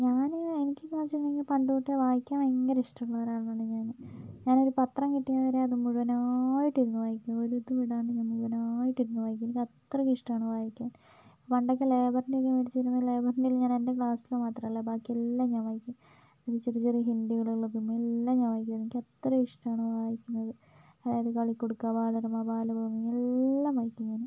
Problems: low volume